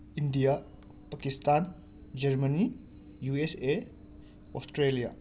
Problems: constant background noise